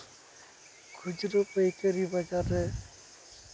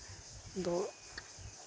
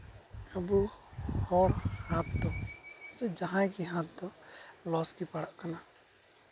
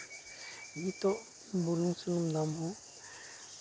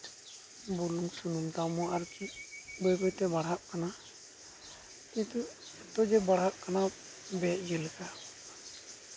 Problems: constant background noise